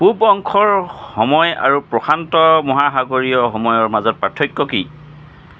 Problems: constant background noise